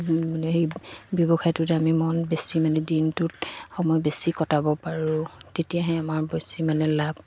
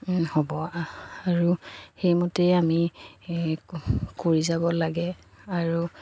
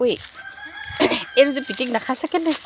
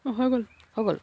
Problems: background sounds at intervals, background conversations at intervals